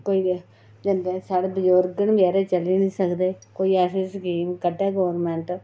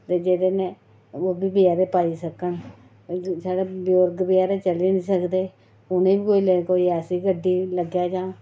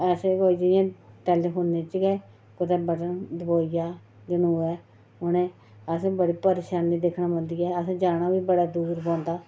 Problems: none marked